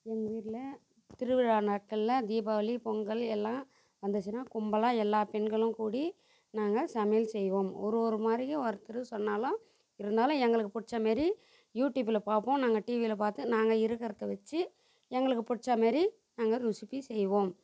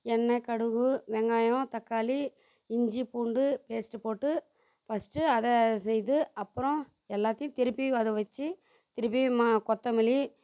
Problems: constant background noise